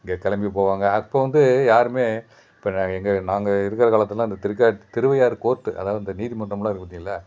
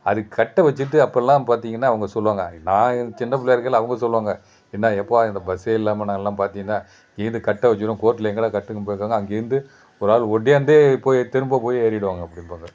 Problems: background sounds at intervals